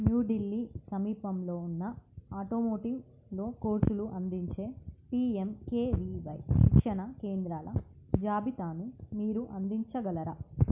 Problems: low volume